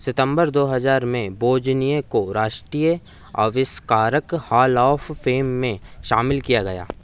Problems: none marked